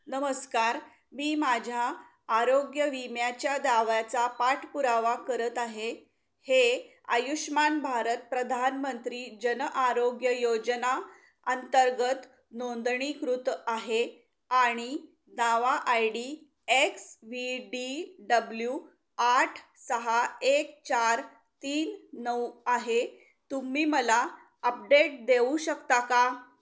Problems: background sounds at intervals